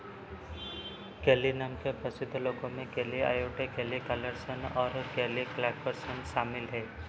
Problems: none marked